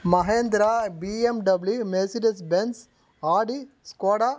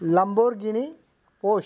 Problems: none marked